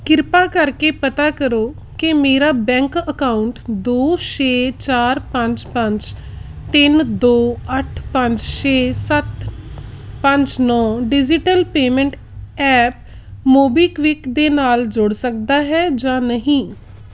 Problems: background sounds at intervals